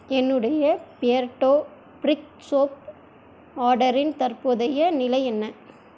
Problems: constant background noise